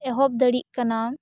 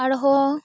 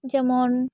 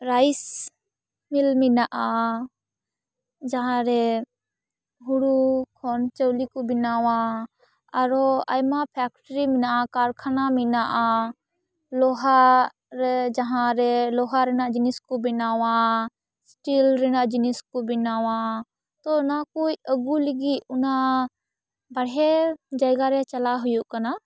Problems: background sounds at intervals